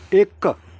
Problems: none marked